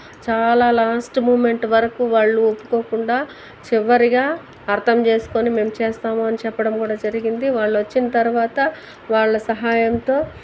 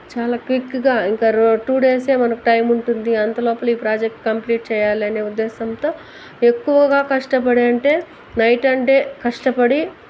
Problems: constant background noise